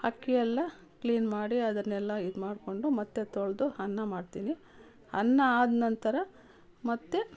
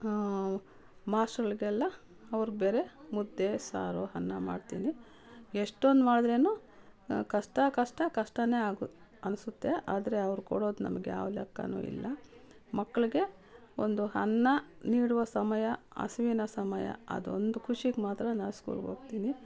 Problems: none marked